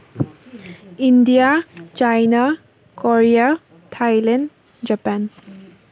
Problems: constant background noise